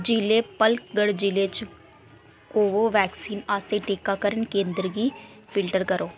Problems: none marked